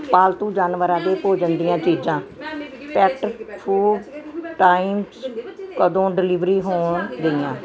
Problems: background sounds at intervals